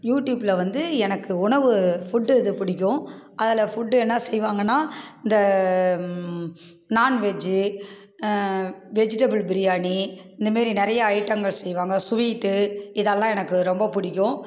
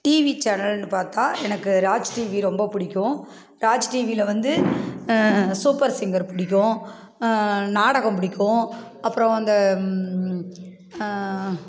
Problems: constant background noise